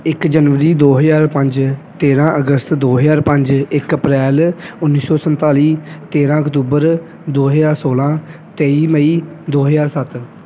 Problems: none marked